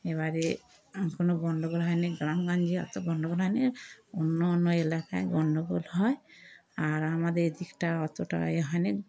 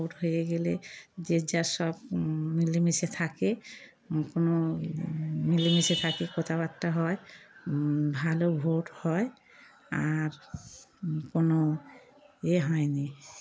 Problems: constant background noise